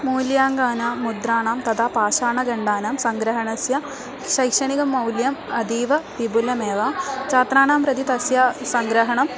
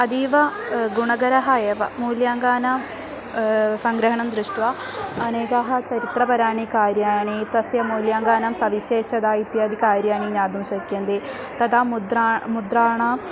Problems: constant background noise, continuous background conversations